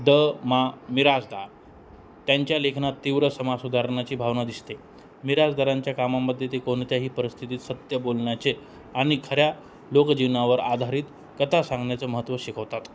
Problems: none marked